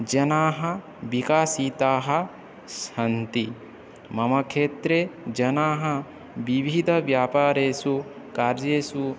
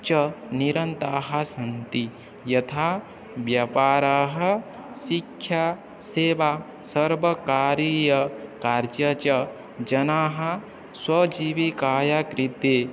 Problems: constant background noise, background conversations at intervals